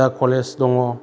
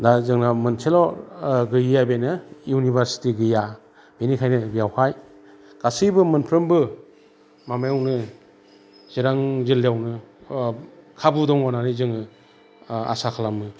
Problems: constant background noise